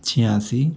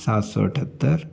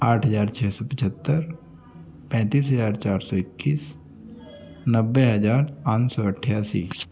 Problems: constant background noise, continuous background conversations